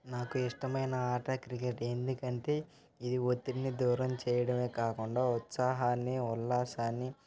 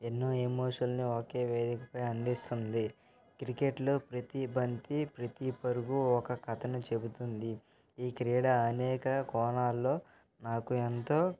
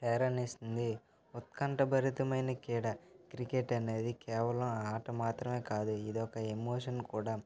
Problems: constant background noise, continuous background conversations